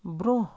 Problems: none marked